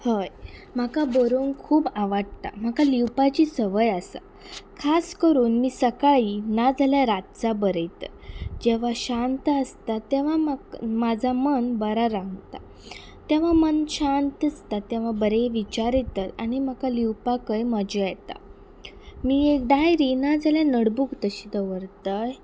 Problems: background sounds at intervals